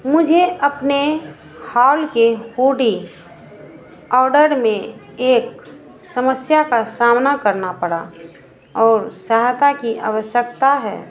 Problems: constant background noise